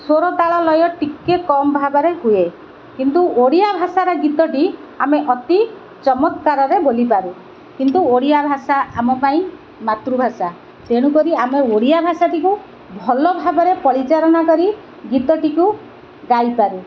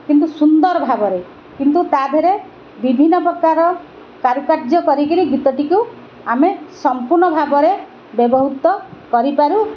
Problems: none marked